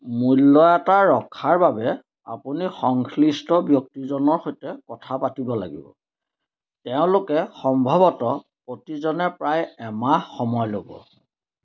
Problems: none marked